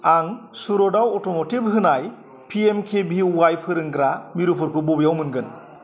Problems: constant background noise